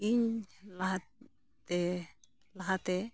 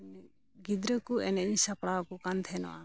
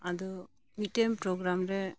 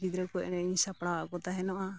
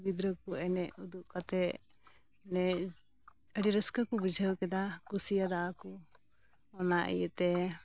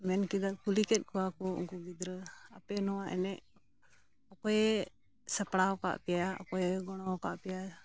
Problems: background sounds at intervals